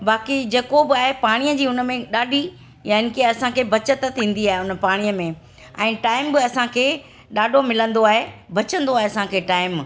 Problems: constant background noise